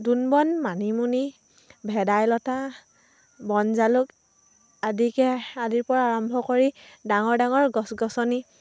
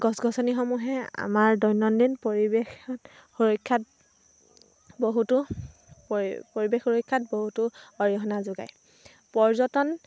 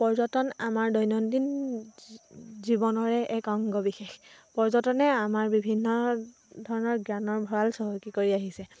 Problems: none marked